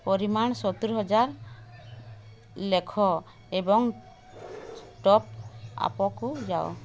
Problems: constant background noise